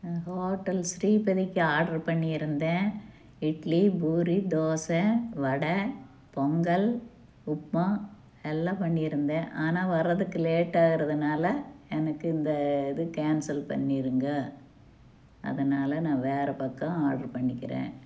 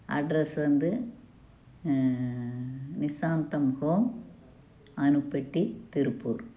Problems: none marked